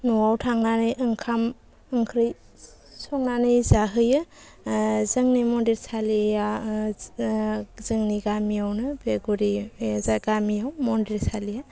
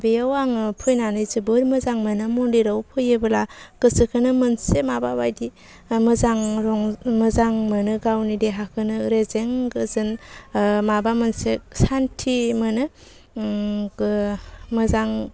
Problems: constant background noise